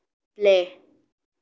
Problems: none marked